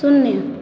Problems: constant background noise